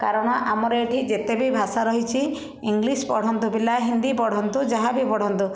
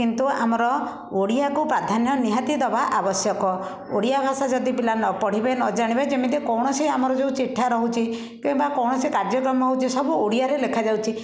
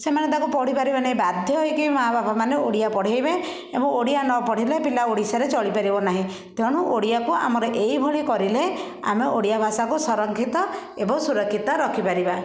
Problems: constant background noise, continuous background conversations